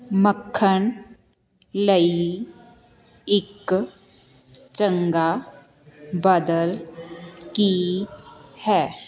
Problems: continuous background conversations